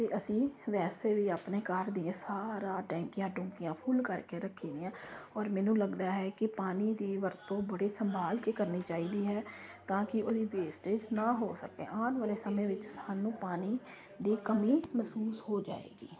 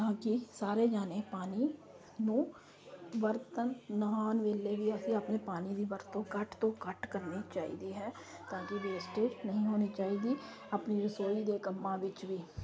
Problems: constant background noise